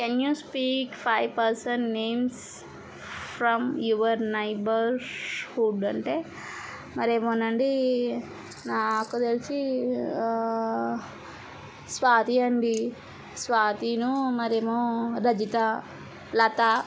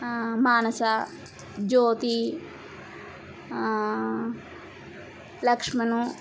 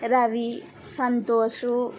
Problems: none marked